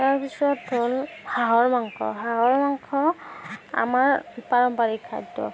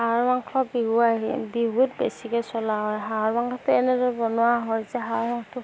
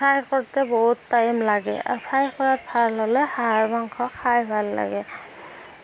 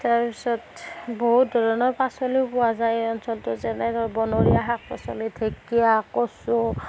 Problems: background sounds at intervals